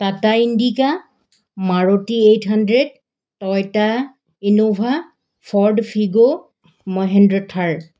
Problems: background sounds at intervals